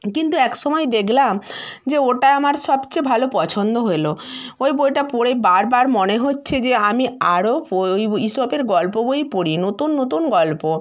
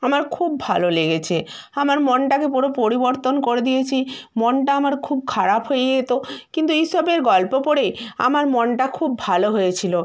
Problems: none marked